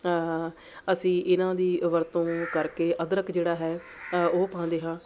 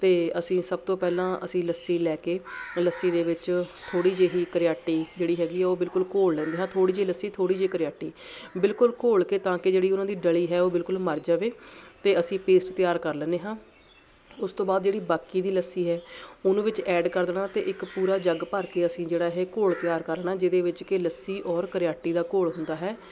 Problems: constant background noise